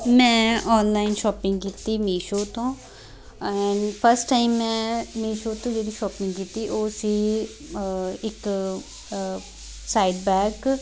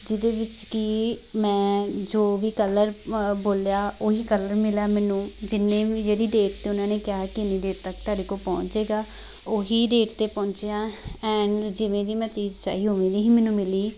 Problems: constant background noise, continuous background conversations